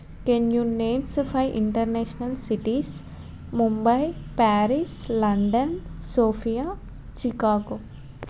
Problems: constant background noise